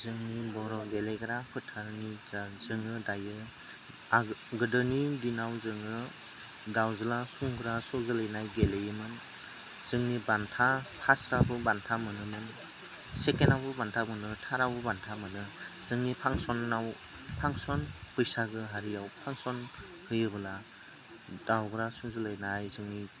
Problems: none marked